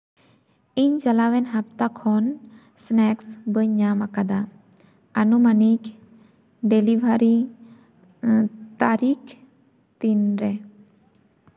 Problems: echo